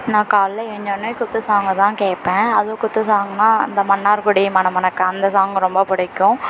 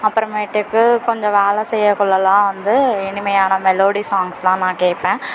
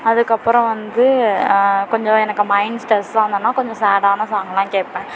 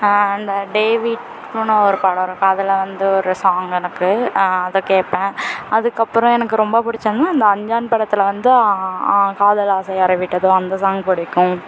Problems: constant background noise, background conversations at intervals